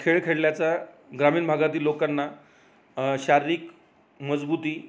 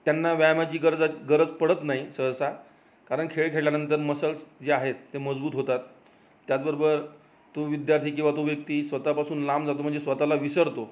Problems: none marked